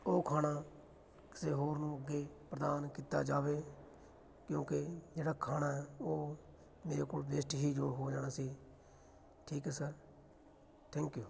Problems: background sounds at intervals, continuous background conversations